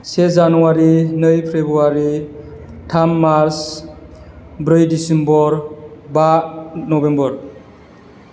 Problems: none marked